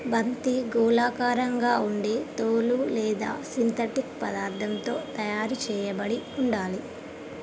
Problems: constant background noise